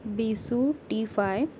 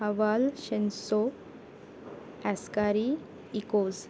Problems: constant background noise